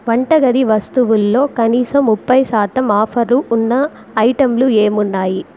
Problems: constant background noise